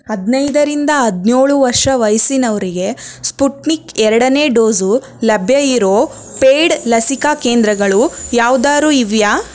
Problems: constant background noise